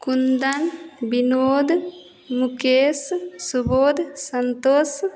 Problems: none marked